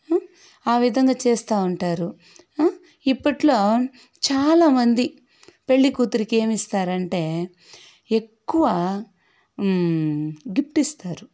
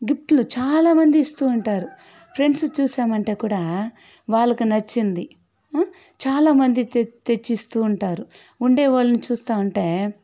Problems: background sounds at intervals